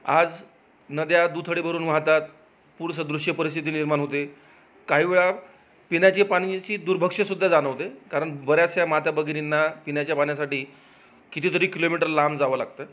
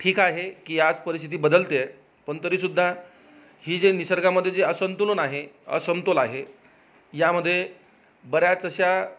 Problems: none marked